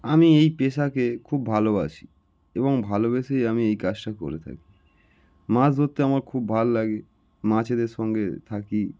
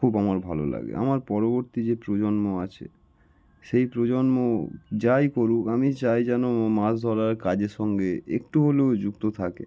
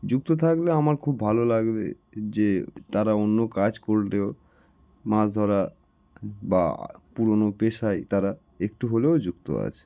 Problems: none marked